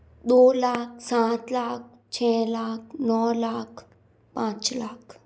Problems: background sounds at intervals, echo